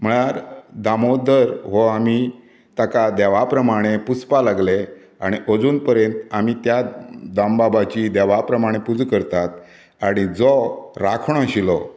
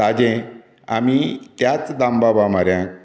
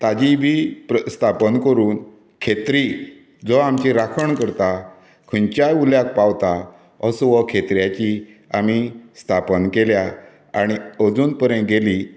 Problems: none marked